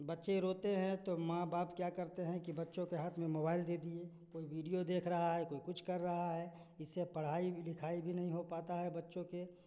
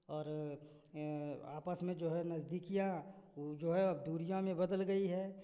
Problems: constant background noise